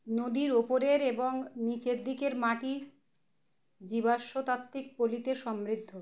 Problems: none marked